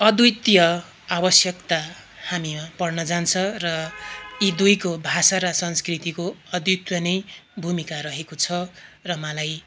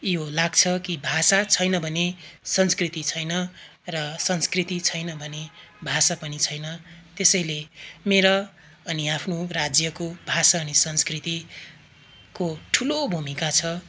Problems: none marked